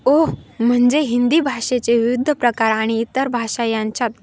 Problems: constant background noise